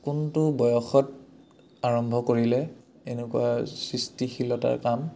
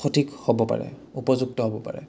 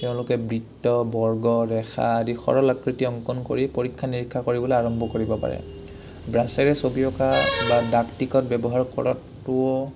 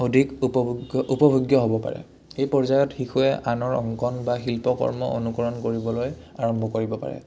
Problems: low volume